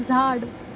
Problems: constant background noise